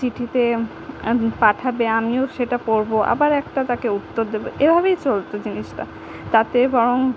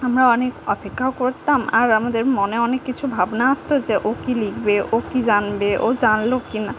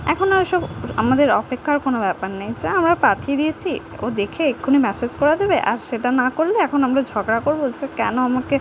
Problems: none marked